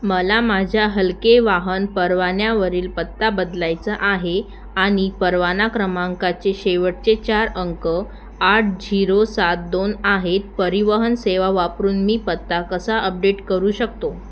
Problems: none marked